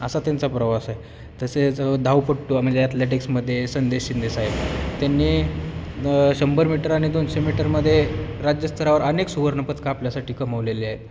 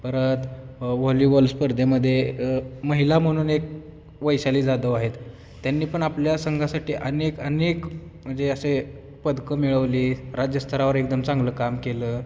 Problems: constant background noise, continuous background conversations